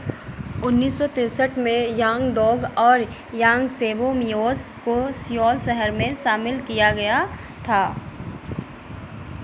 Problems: constant background noise